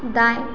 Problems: constant background noise, echo